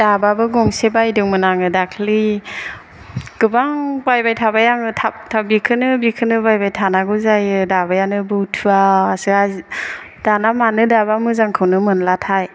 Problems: none marked